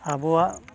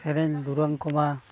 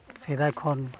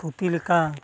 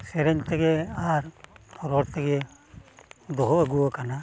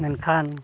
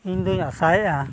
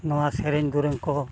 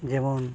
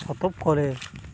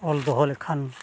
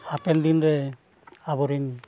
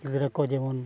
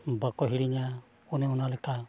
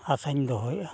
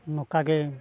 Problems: constant background noise, continuous background conversations